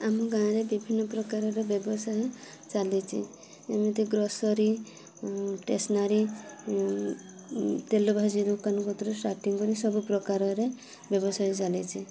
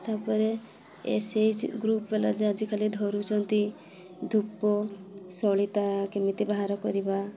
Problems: constant background noise, continuous background conversations